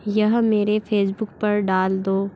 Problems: constant background noise